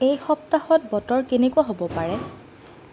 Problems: none marked